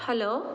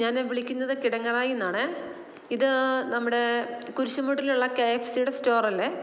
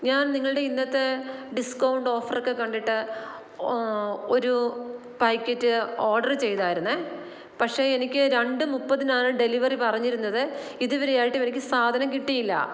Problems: constant background noise